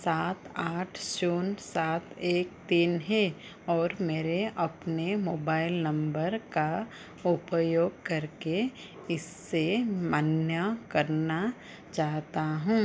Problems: low volume